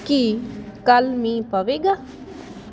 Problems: constant background noise